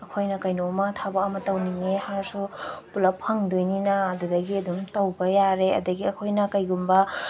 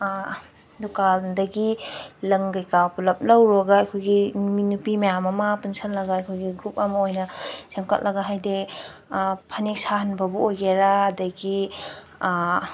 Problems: background sounds at intervals